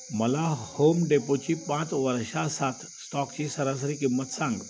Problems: constant background noise